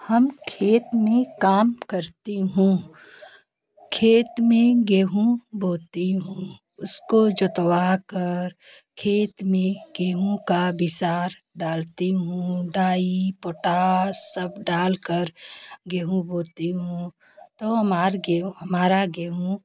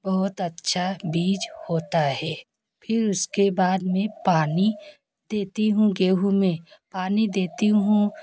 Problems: constant background noise, continuous background conversations